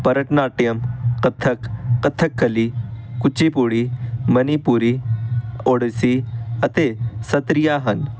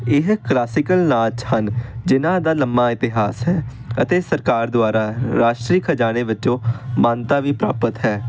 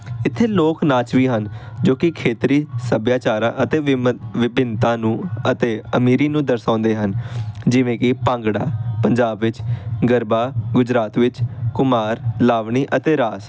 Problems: constant background noise